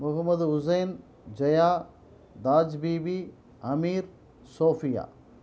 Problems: background conversations at intervals